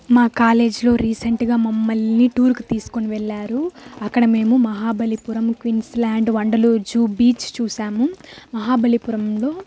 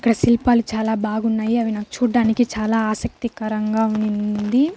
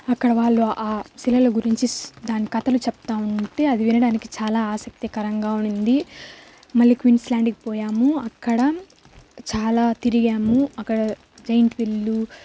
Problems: constant background noise